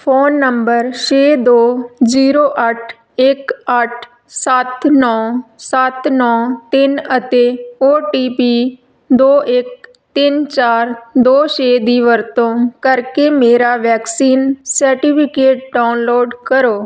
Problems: none marked